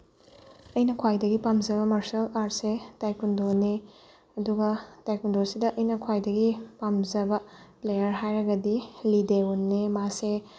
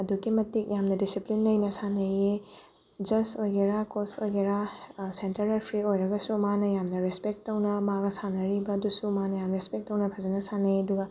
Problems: background sounds at intervals